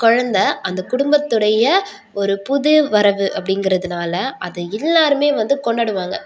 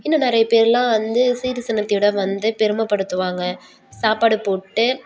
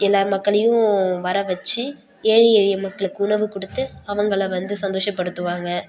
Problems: background sounds at intervals